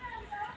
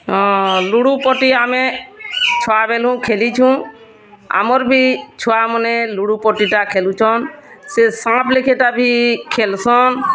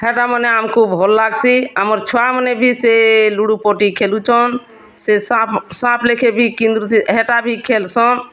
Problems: none marked